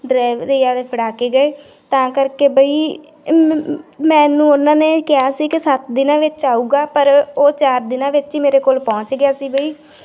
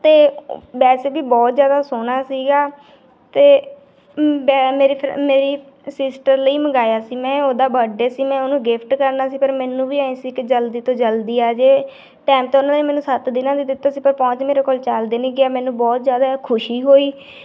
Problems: background sounds at intervals